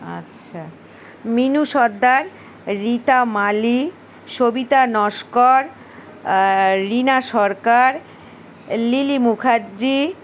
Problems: constant background noise, continuous background conversations